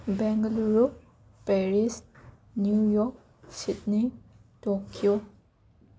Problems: constant background noise, background conversations at intervals